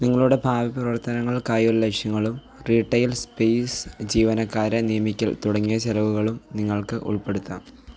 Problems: background sounds at intervals